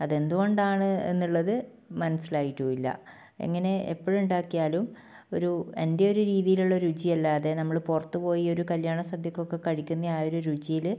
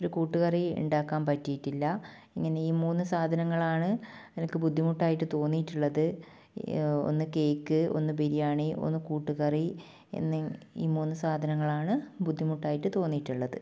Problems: low volume